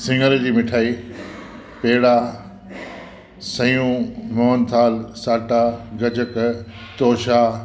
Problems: constant background noise, echo